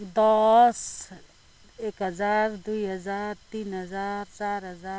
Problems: none marked